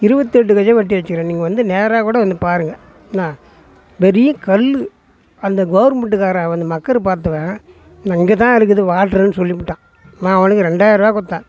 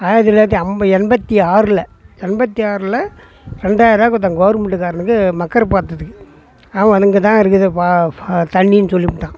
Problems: background sounds at intervals, background conversations at intervals